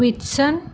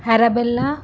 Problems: constant background noise